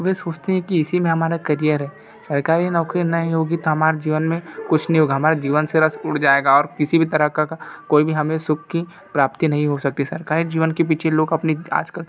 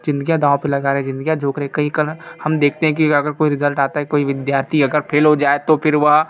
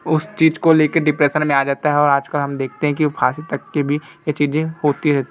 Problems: background sounds at intervals